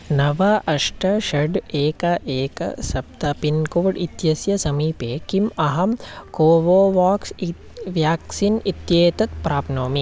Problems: constant background noise